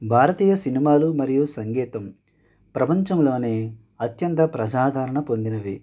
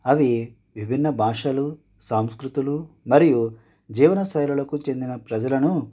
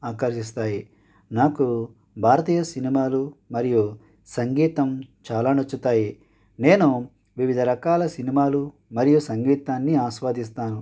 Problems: none marked